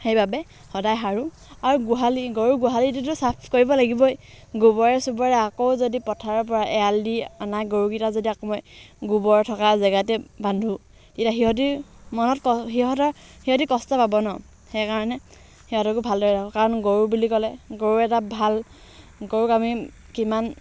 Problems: background sounds at intervals